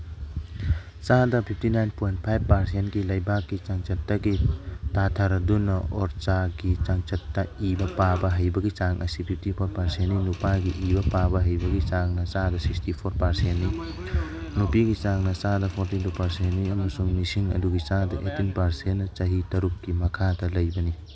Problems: background sounds at intervals, background conversations at intervals